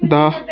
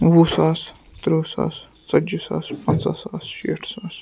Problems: constant background noise, continuous background conversations